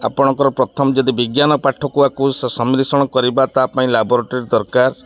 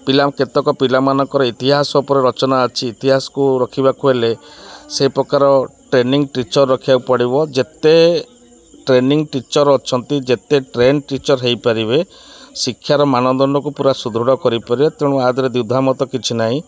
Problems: constant background noise, continuous background conversations